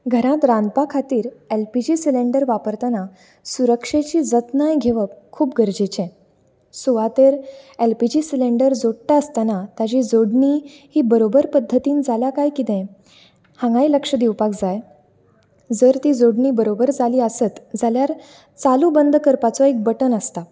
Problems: constant background noise